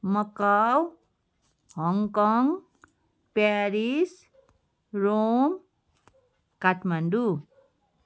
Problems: constant background noise